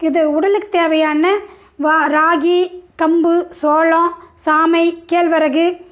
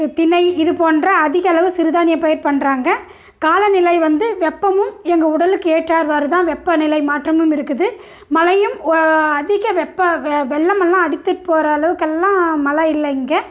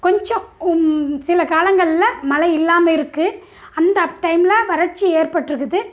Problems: none marked